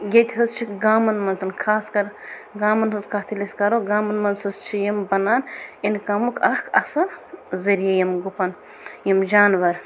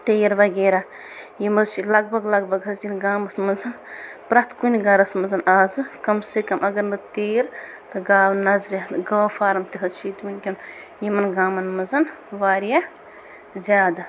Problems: constant background noise